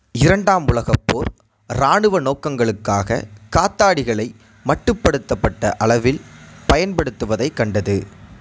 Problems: none marked